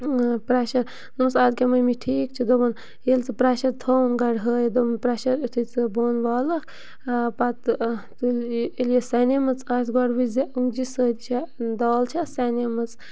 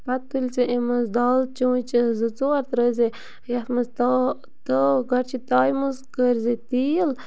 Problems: background sounds at intervals